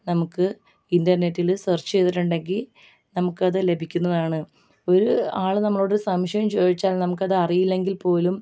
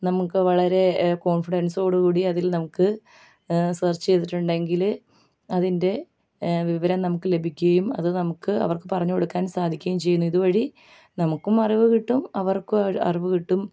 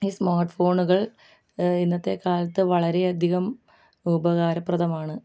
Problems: low volume